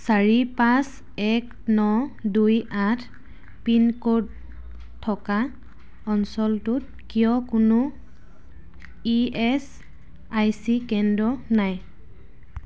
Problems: none marked